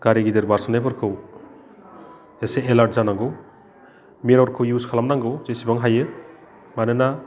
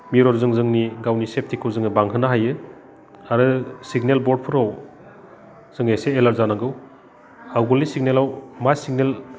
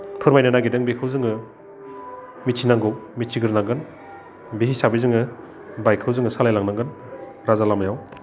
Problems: constant background noise